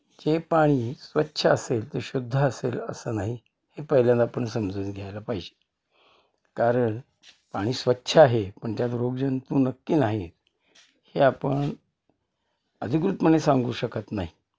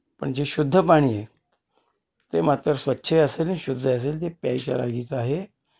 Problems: constant background noise, background conversations at intervals